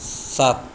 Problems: none marked